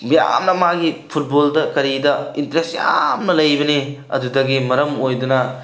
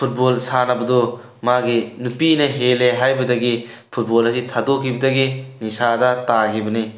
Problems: none marked